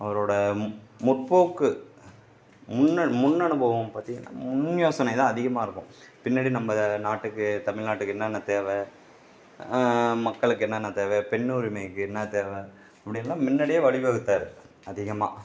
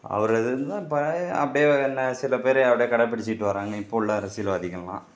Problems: background sounds at intervals